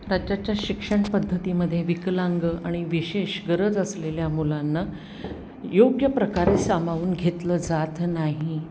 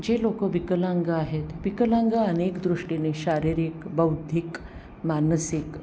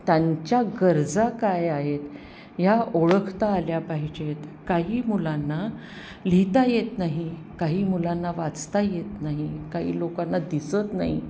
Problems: none marked